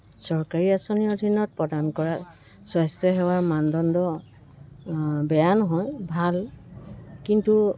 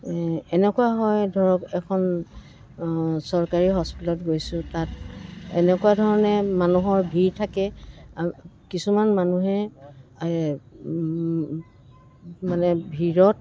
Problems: constant background noise